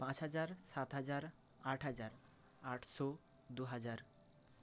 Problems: constant background noise